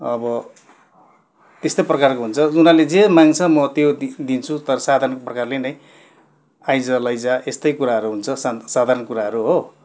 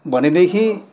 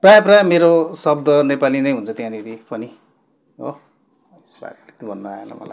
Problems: constant background noise